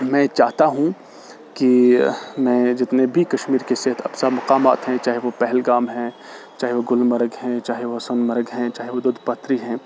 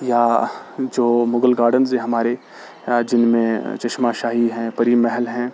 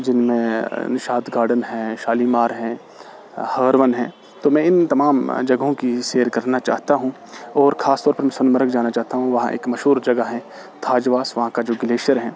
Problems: constant background noise